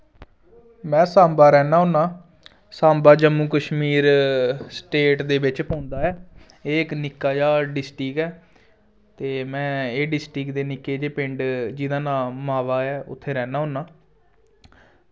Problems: none marked